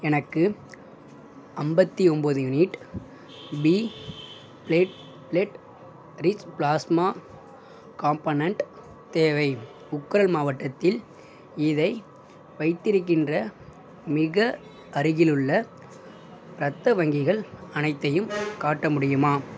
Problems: background sounds at intervals